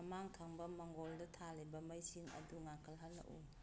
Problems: background sounds at intervals